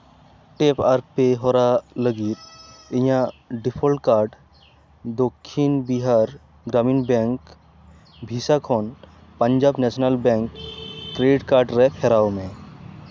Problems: background sounds at intervals